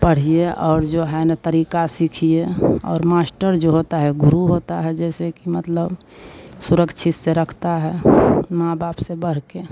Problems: constant background noise